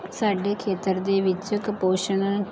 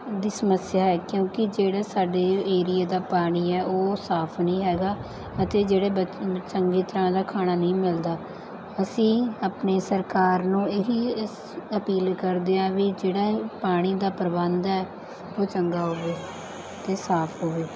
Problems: background conversations at intervals